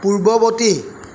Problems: constant background noise